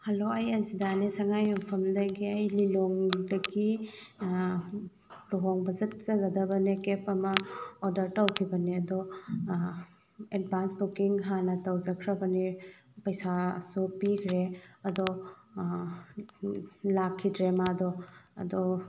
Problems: constant background noise